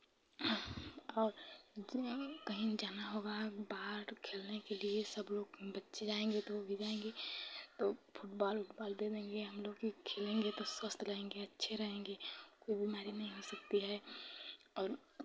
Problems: background sounds at intervals